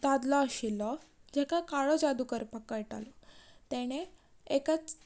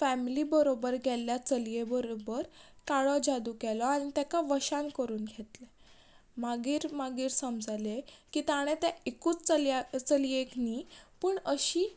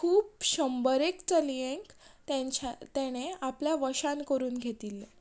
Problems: background sounds at intervals